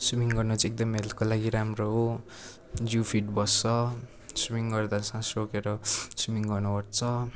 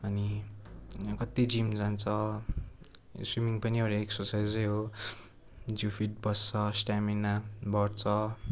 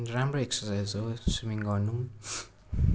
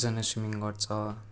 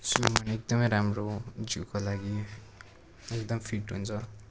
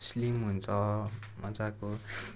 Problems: constant background noise